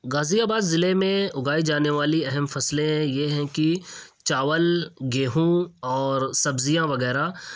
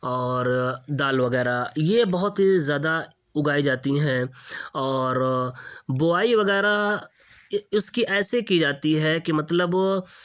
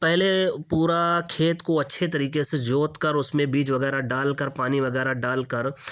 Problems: none marked